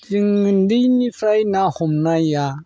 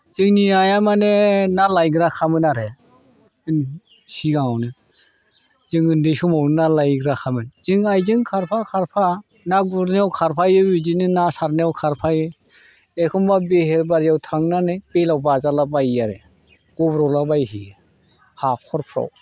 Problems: constant background noise